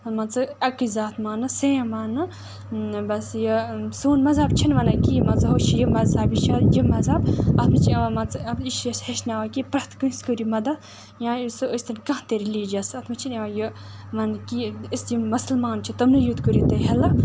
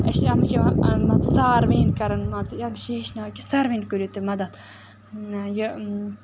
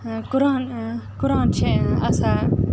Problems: constant background noise